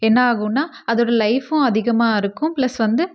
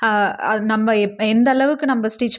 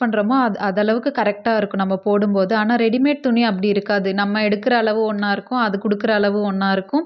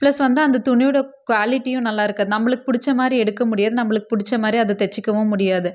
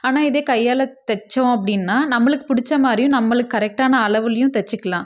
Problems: none marked